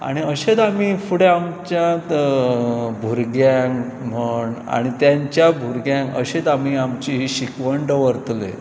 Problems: none marked